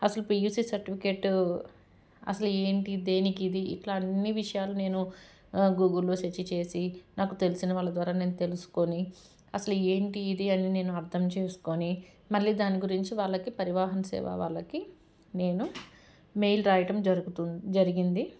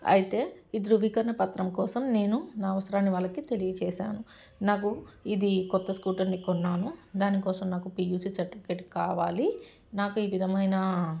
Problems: background sounds at intervals